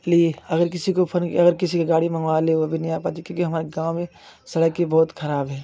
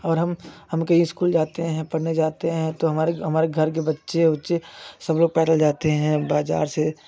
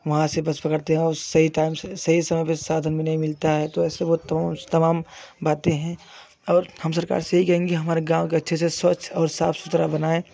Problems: constant background noise